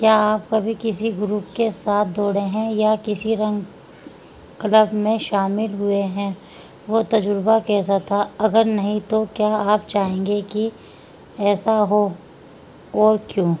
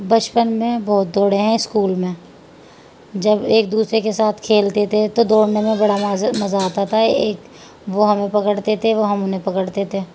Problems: constant background noise